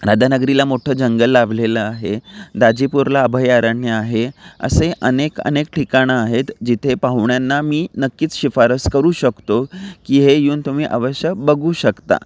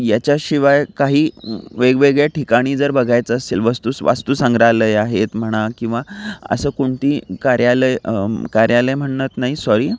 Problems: none marked